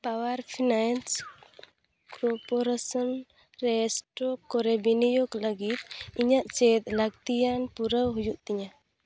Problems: background sounds at intervals